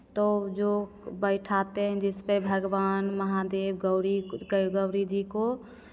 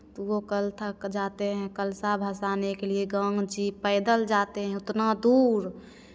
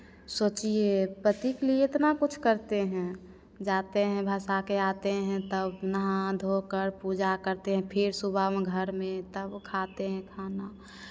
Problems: none marked